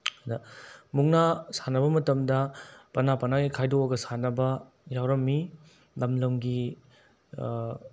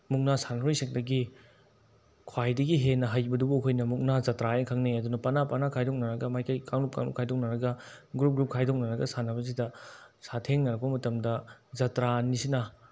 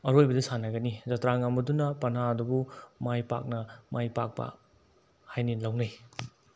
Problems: none marked